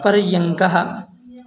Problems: none marked